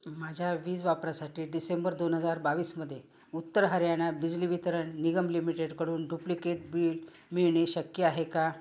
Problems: none marked